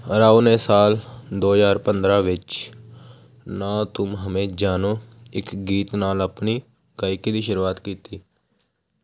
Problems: constant background noise